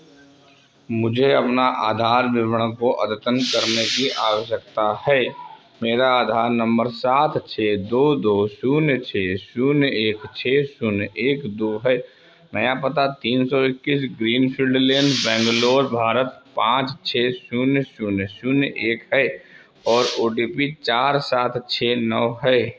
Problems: constant background noise